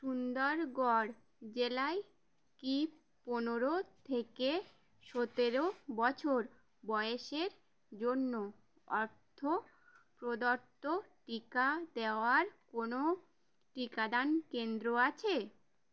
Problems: none marked